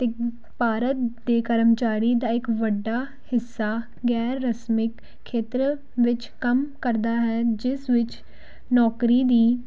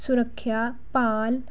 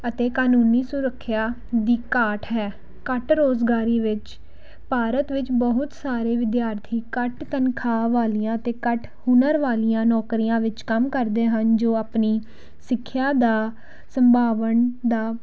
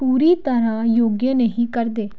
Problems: none marked